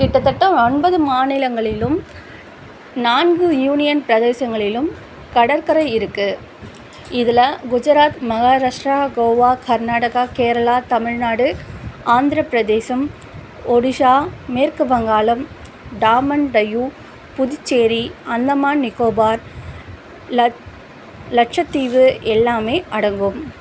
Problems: constant background noise